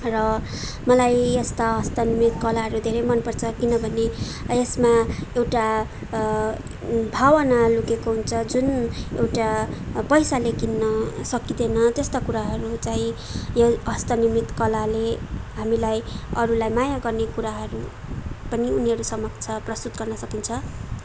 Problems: background sounds at intervals